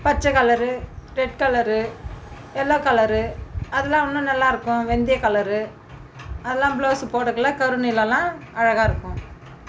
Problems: background sounds at intervals